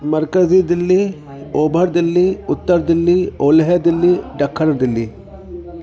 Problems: constant background noise